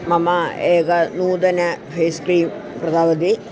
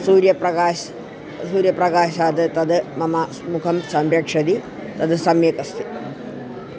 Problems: none marked